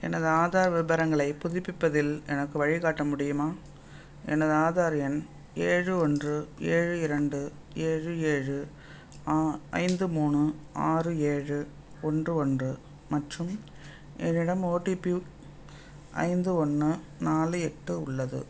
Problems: background sounds at intervals